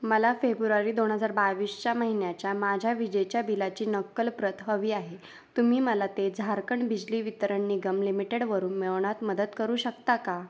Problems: none marked